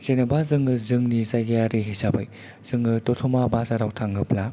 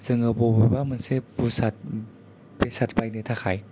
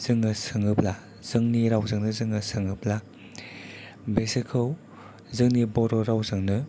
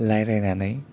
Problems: low volume